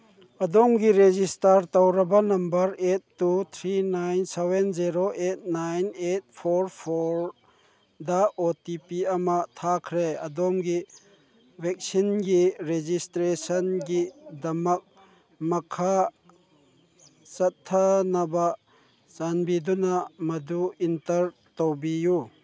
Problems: background sounds at intervals